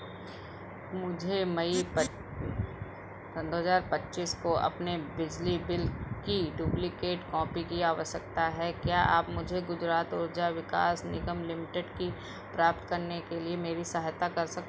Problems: background sounds at intervals